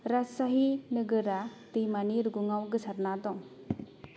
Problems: low volume